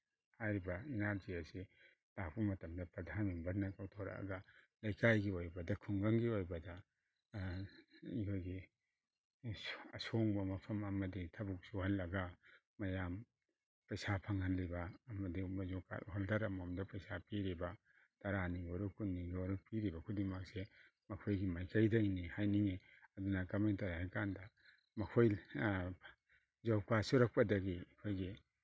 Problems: none marked